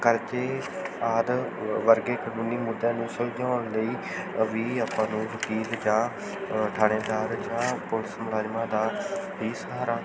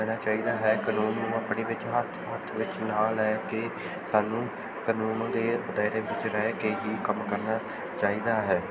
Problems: continuous background conversations